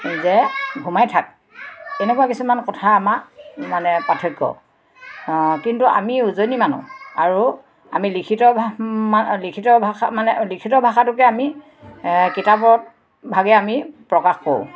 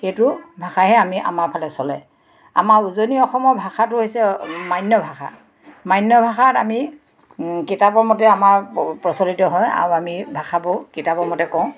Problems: constant background noise, background conversations at intervals